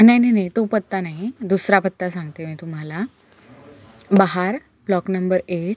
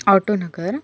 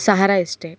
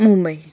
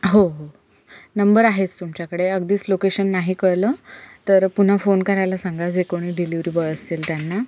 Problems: constant background noise